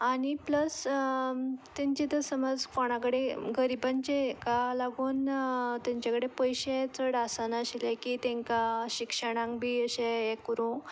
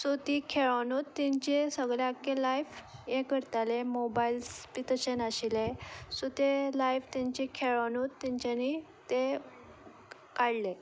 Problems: none marked